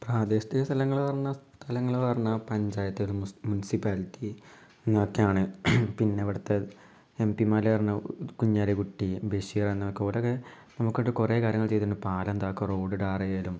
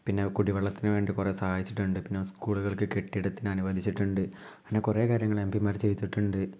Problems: low volume